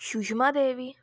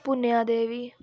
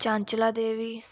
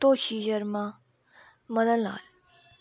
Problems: constant background noise